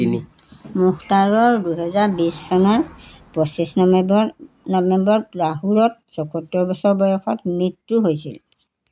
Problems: constant background noise, background conversations at intervals